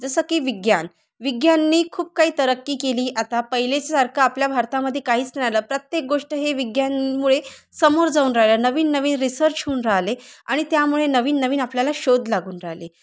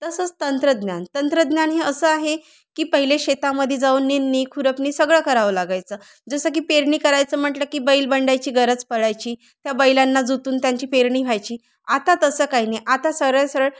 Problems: constant background noise